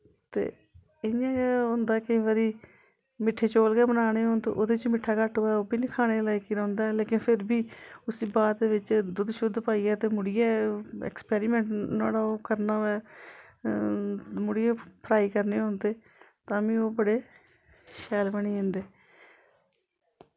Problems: constant background noise